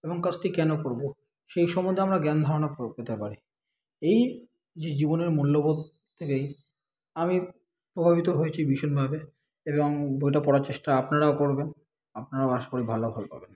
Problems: constant background noise